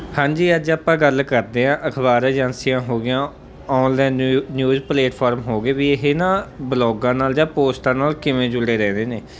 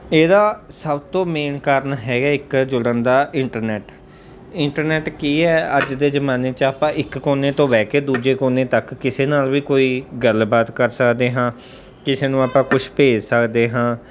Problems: background sounds at intervals